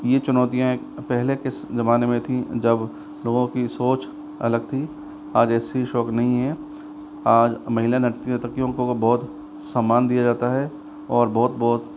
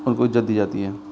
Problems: constant background noise